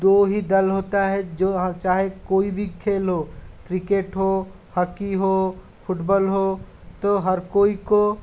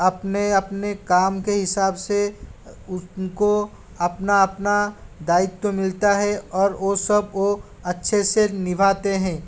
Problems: constant background noise, background conversations at intervals